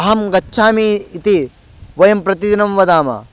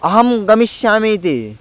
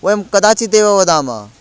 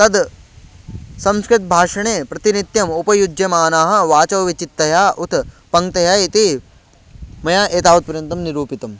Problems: background sounds at intervals